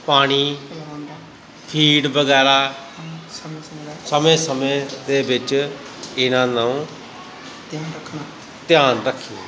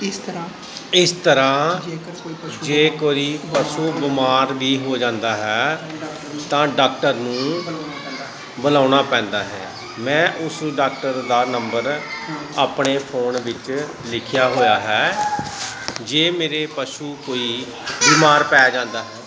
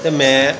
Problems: constant background noise, continuous background conversations